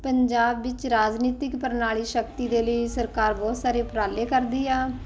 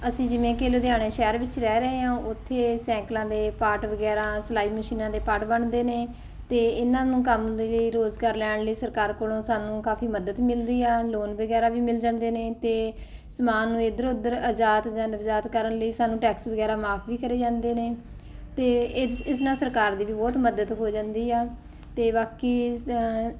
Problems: none marked